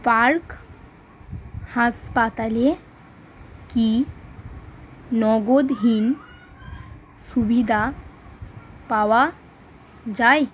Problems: none marked